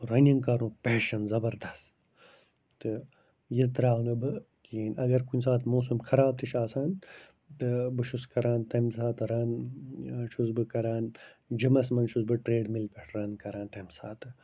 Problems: constant background noise